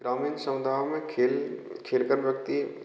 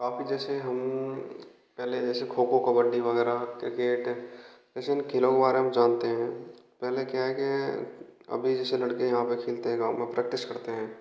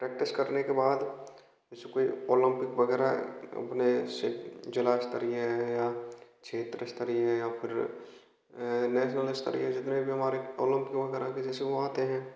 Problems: constant background noise, echo